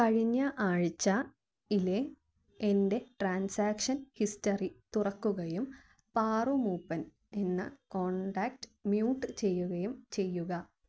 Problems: low volume